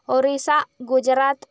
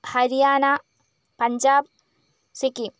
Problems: none marked